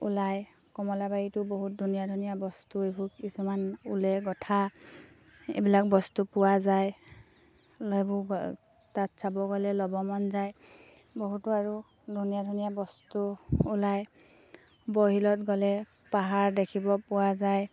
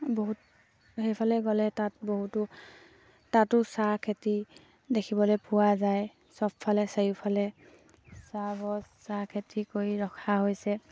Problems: low volume